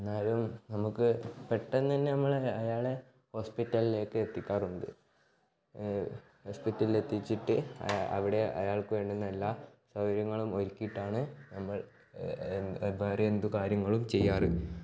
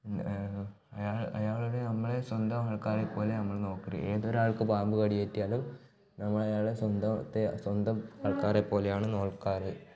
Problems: background sounds at intervals, low volume